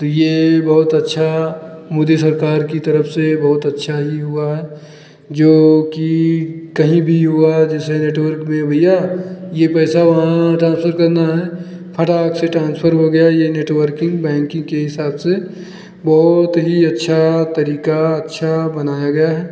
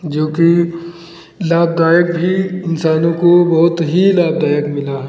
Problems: constant background noise